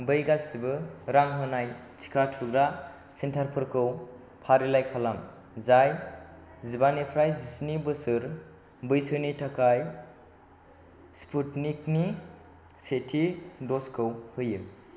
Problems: constant background noise